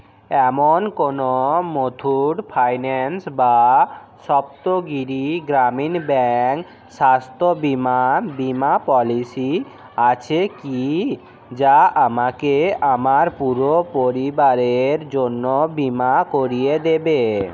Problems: constant background noise, continuous background conversations